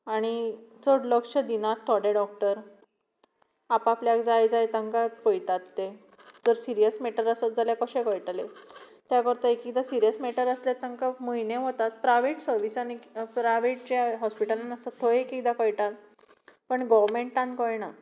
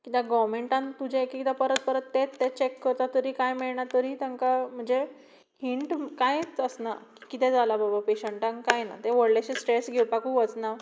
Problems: background sounds at intervals